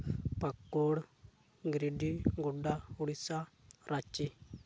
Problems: background sounds at intervals